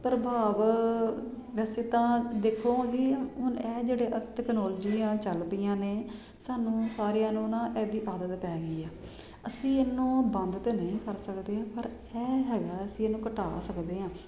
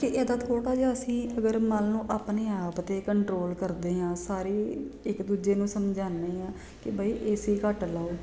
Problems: constant background noise